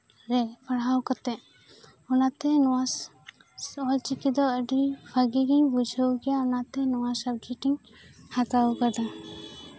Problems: background sounds at intervals